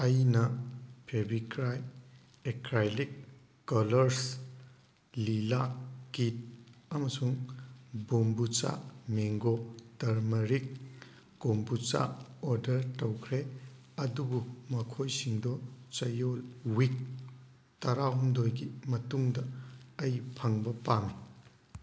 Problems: background sounds at intervals